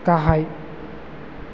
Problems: none marked